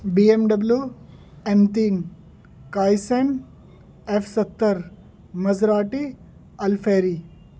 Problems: background sounds at intervals